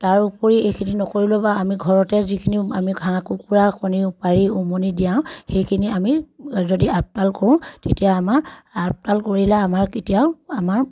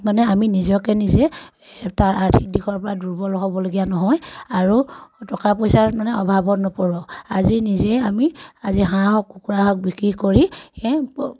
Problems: none marked